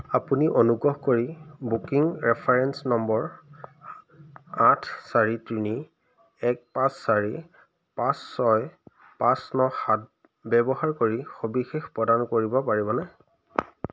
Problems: constant background noise